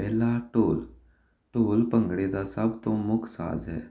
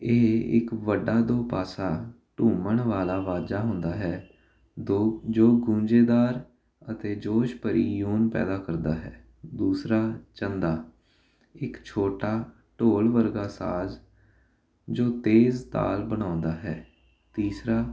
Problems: constant background noise